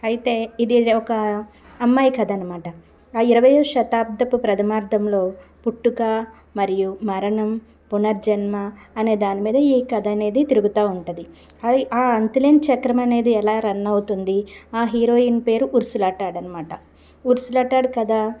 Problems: constant background noise